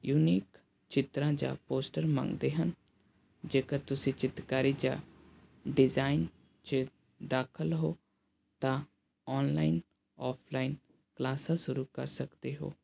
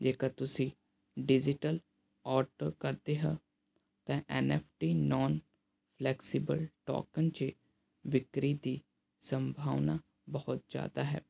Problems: background sounds at intervals